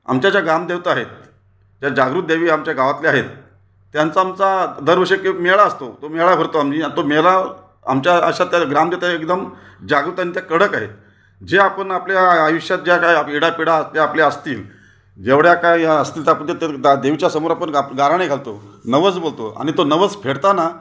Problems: none marked